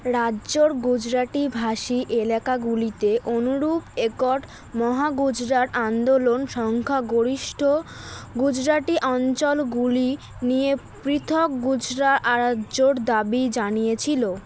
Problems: constant background noise